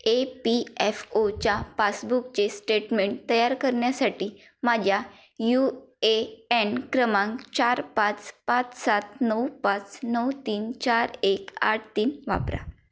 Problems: none marked